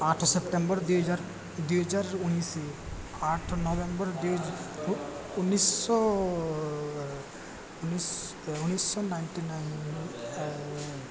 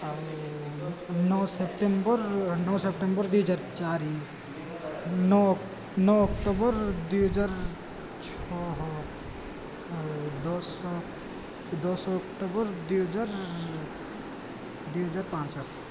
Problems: none marked